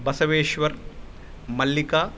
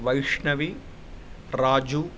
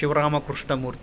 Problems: none marked